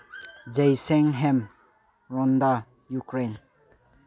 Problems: background sounds at intervals, low volume